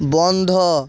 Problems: background sounds at intervals